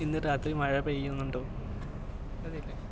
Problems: low volume